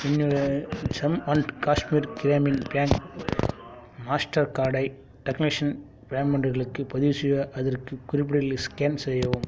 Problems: background sounds at intervals